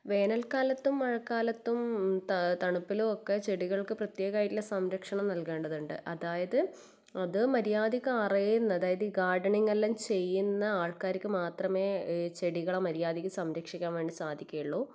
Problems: none marked